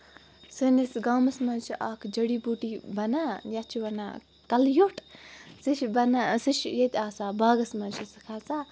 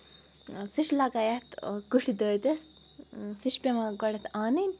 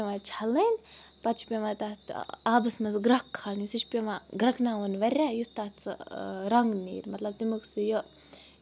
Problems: background sounds at intervals